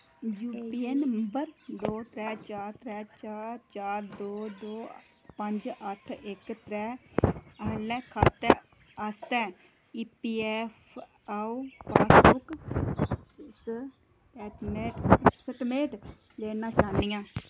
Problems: constant background noise, low volume